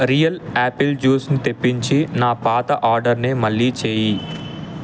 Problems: constant background noise